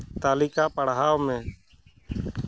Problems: none marked